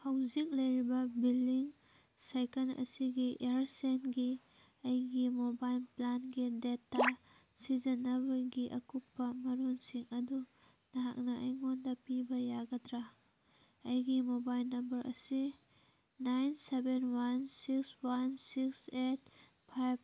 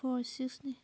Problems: background sounds at intervals